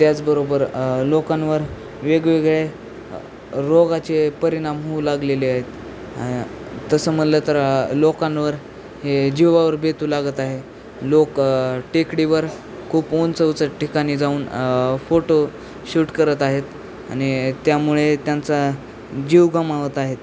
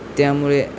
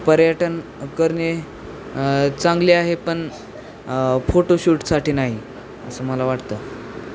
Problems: constant background noise, background conversations at intervals